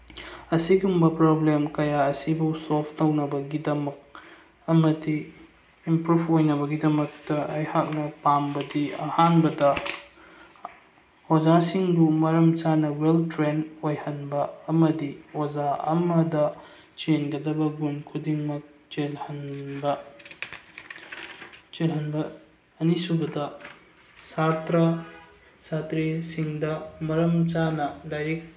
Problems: none marked